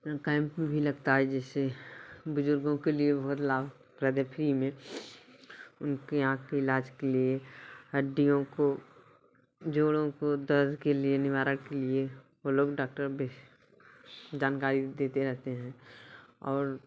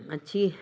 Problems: constant background noise